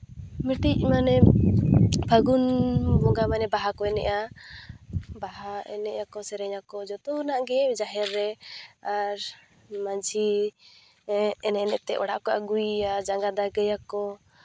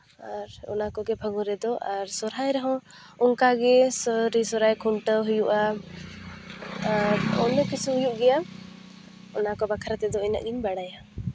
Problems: constant background noise